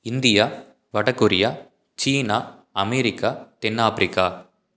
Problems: none marked